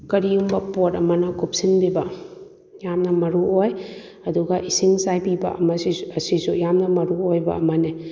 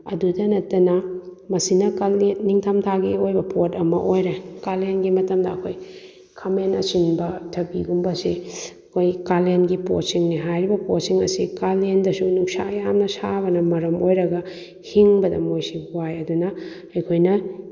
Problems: none marked